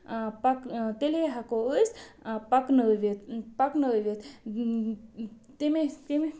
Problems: none marked